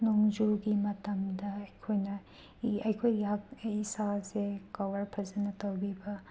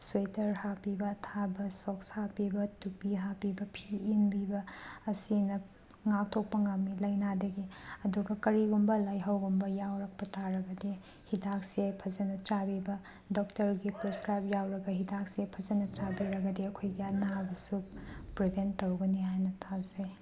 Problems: none marked